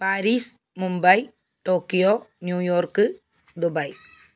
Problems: background sounds at intervals